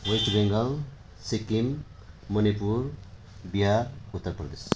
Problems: constant background noise